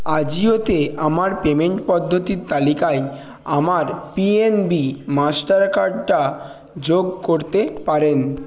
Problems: continuous background conversations